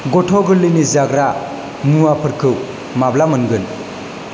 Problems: none marked